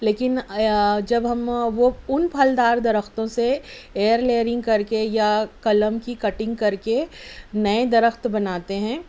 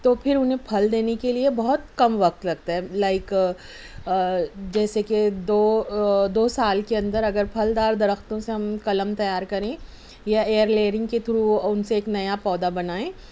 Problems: none marked